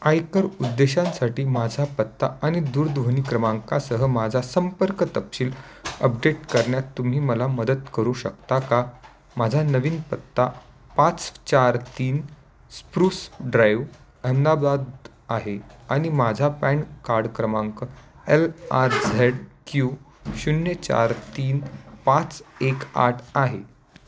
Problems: constant background noise, continuous background conversations